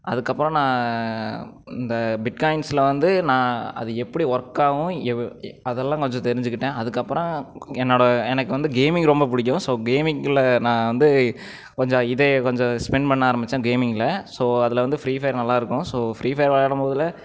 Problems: none marked